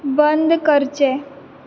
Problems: none marked